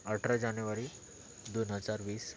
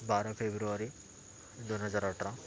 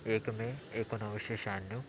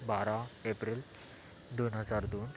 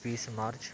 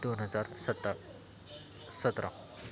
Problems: constant background noise